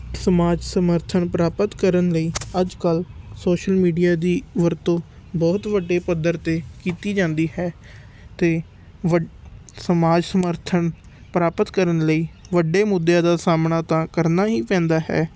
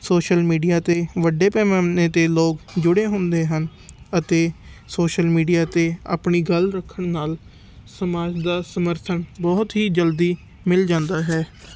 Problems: none marked